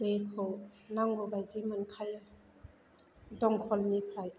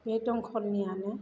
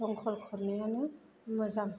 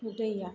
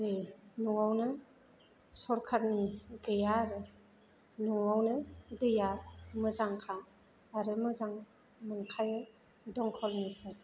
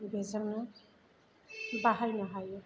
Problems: background sounds at intervals